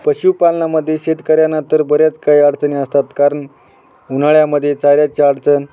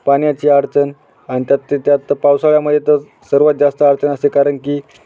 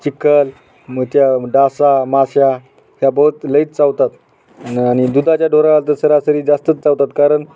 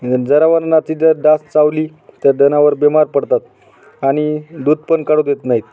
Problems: constant background noise, continuous background conversations